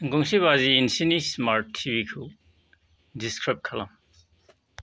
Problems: none marked